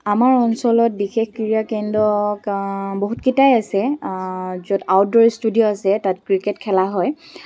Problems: background sounds at intervals